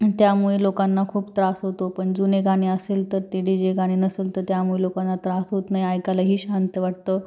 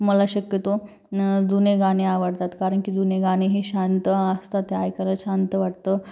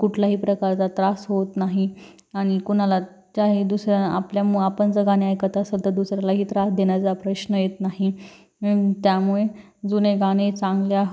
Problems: none marked